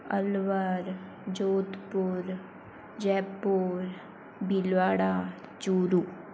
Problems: low volume